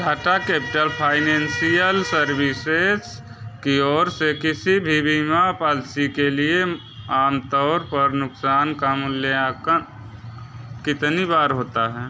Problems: background sounds at intervals